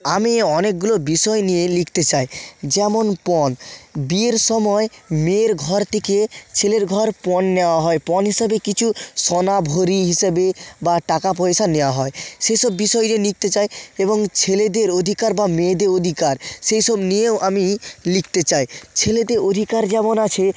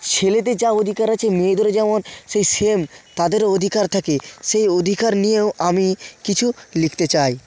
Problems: none marked